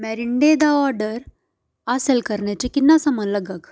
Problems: background sounds at intervals